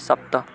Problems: constant background noise